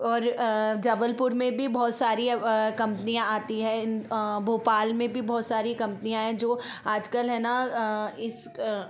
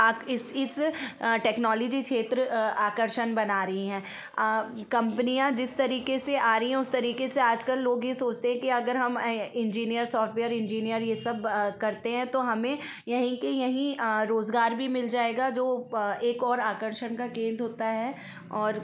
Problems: constant background noise, background conversations at intervals